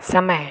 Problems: constant background noise